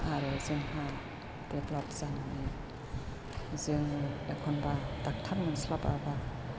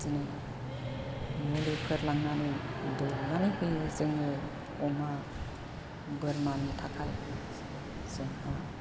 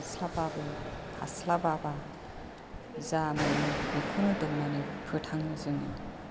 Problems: constant background noise